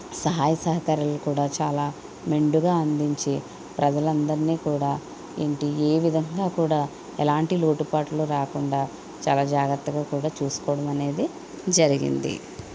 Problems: none marked